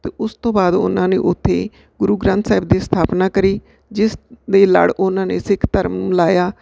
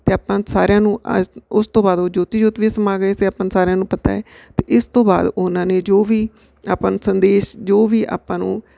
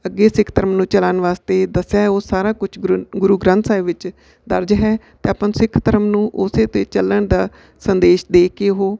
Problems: none marked